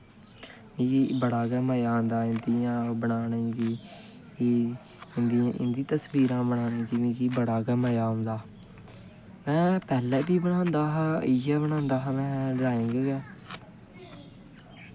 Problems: constant background noise, low volume